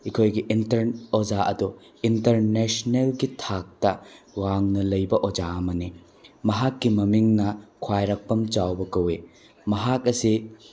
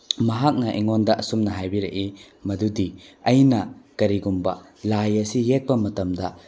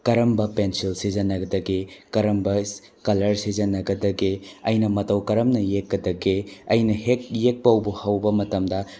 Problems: none marked